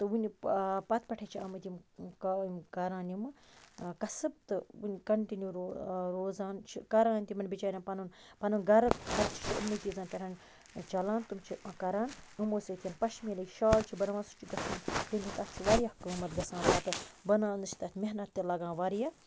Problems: background sounds at intervals, low volume